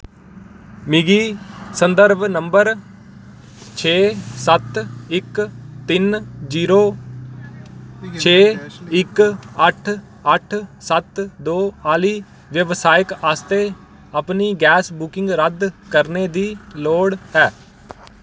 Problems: none marked